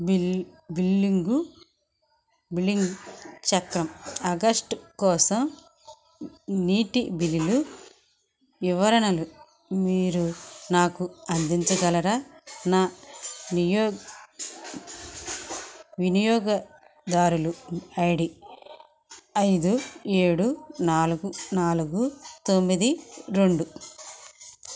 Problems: none marked